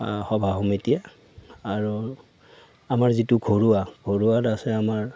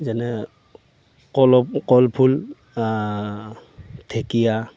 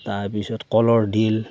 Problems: none marked